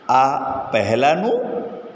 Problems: constant background noise, echo